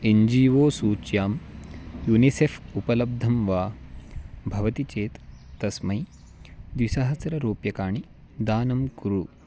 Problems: none marked